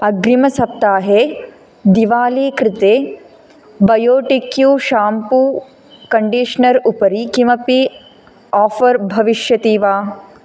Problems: constant background noise